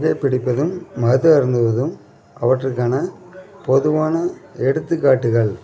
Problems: constant background noise, continuous background conversations